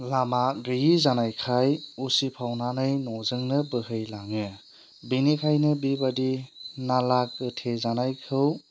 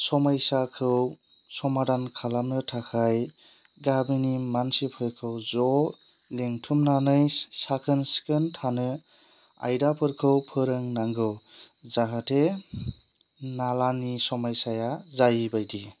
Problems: none marked